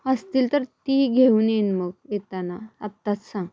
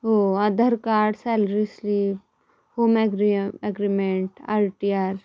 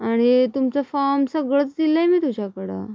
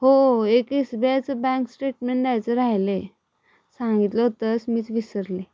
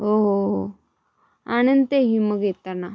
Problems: background sounds at intervals